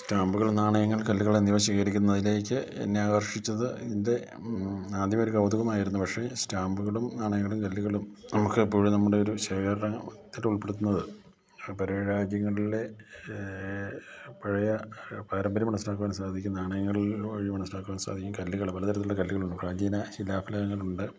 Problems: low volume